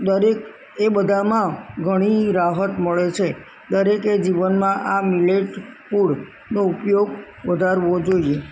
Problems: none marked